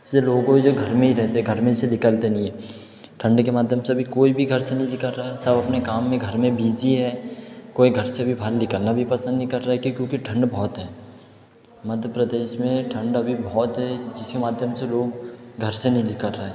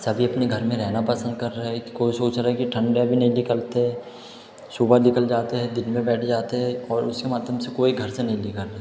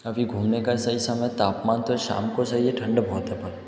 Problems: background conversations at intervals, echo